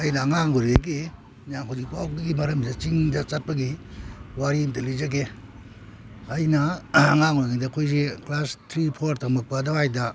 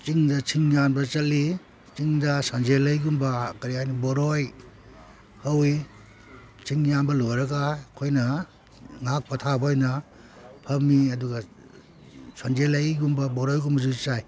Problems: none marked